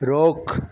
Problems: constant background noise, echo